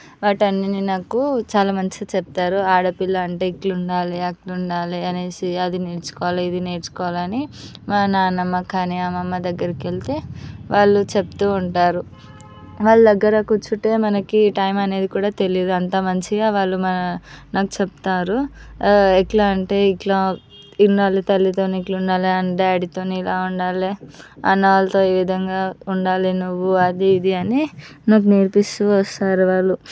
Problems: background sounds at intervals